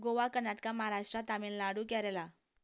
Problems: none marked